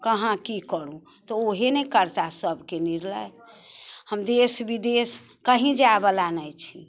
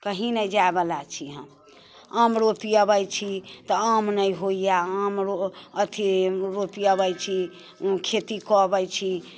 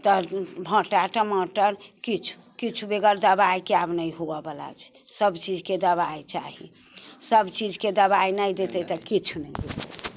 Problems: none marked